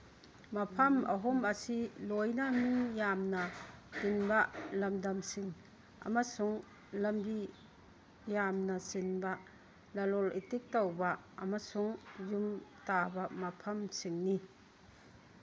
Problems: background sounds at intervals